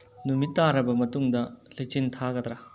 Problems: low volume